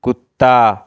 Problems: none marked